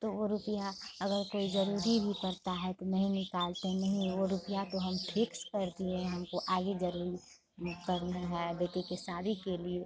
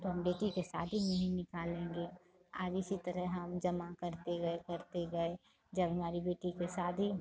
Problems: constant background noise, continuous background conversations, low volume